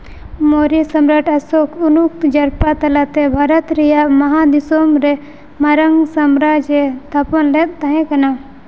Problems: none marked